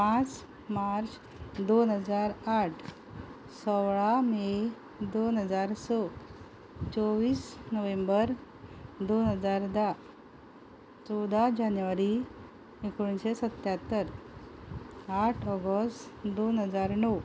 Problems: background sounds at intervals